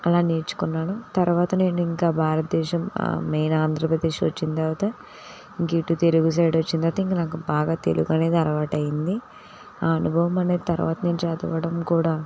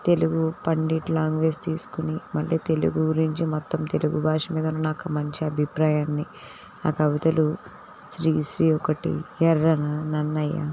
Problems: constant background noise